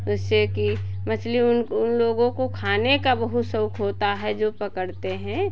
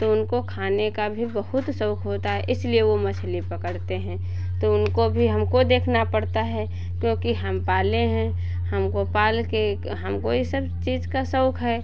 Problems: none marked